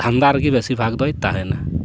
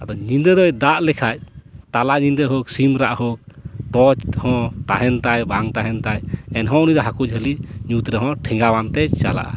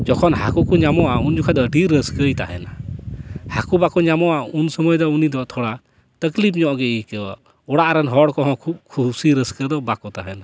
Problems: constant background noise